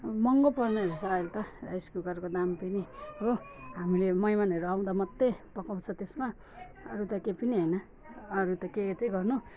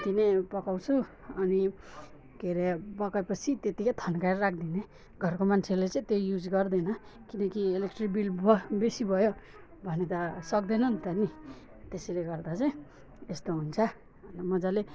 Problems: none marked